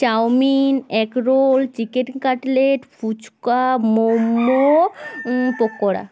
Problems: background sounds at intervals